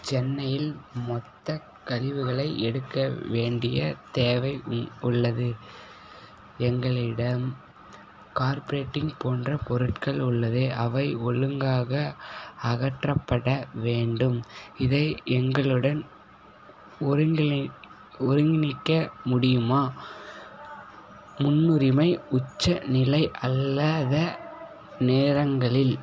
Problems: background sounds at intervals, background conversations at intervals